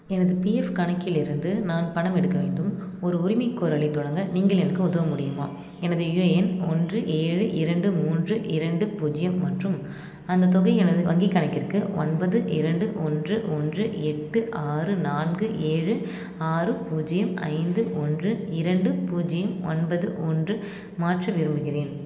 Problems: constant background noise